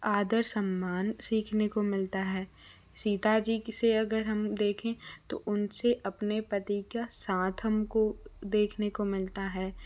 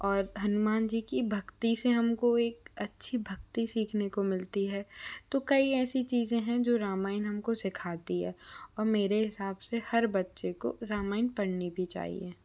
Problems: low volume